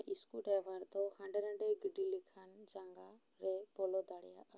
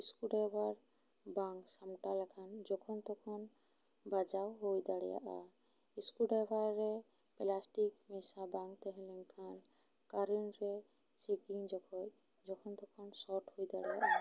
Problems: low volume